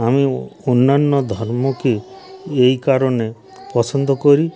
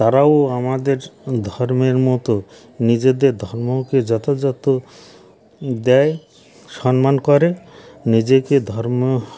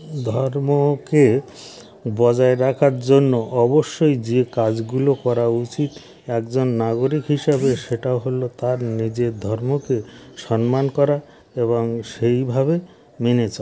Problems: background sounds at intervals